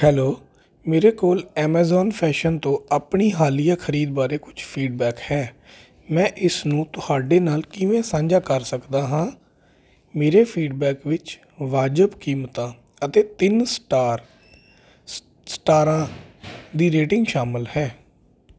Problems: constant background noise